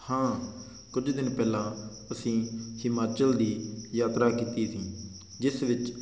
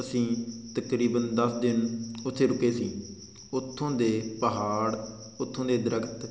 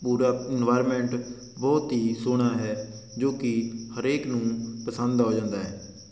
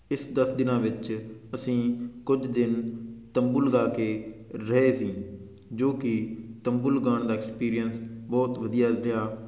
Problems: none marked